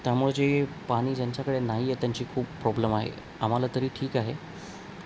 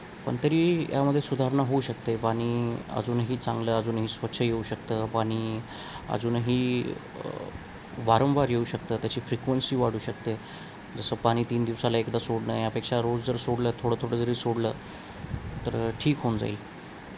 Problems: constant background noise